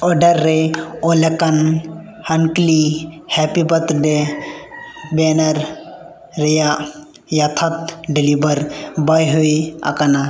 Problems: echo